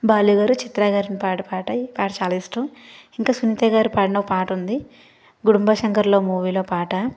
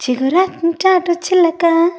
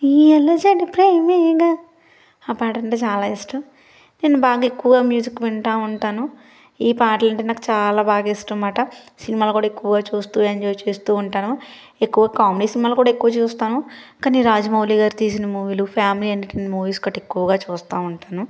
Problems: background sounds at intervals